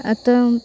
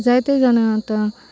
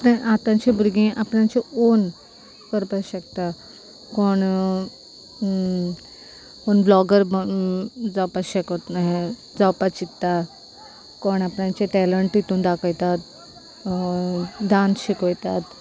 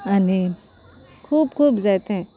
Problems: background sounds at intervals